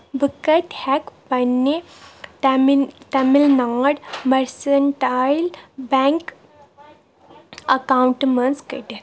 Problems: background sounds at intervals